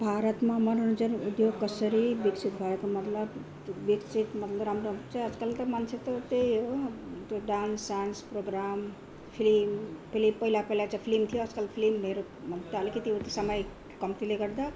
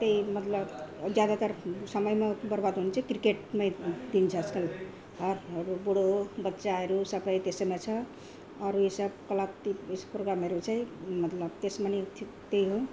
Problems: continuous background conversations